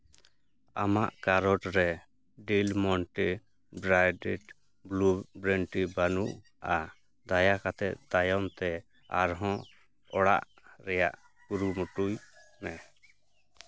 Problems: constant background noise, background conversations at intervals